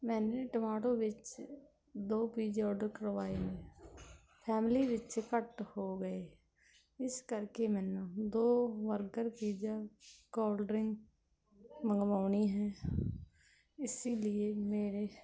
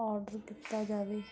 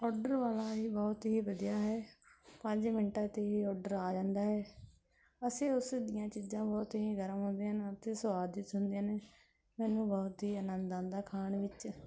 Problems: none marked